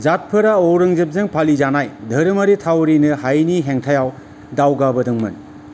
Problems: none marked